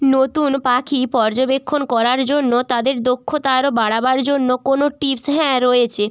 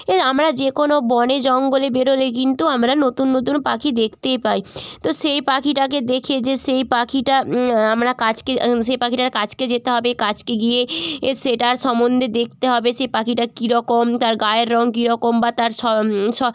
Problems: none marked